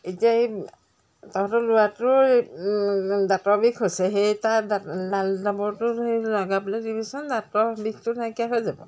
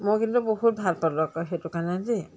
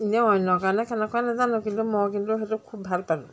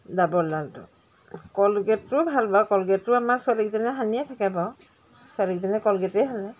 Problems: constant background noise